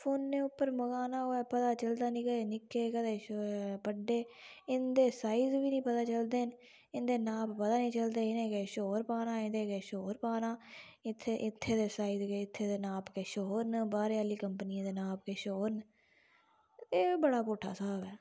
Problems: background sounds at intervals